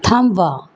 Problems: background sounds at intervals